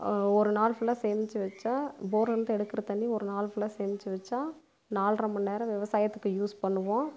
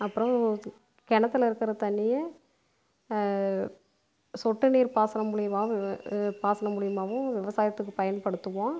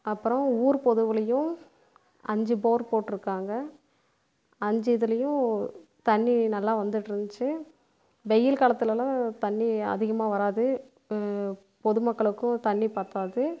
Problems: none marked